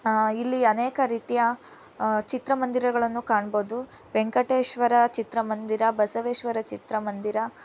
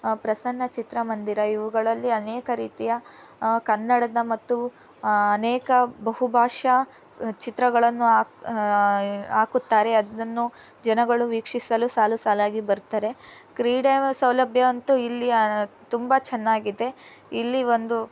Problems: background sounds at intervals